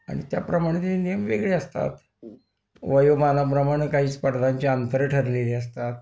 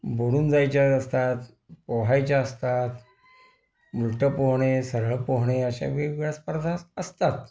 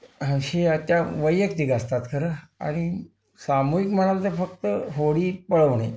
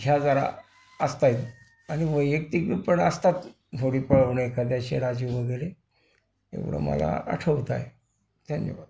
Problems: constant background noise